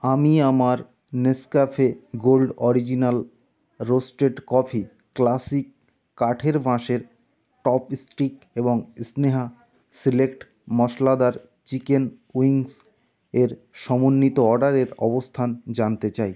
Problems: constant background noise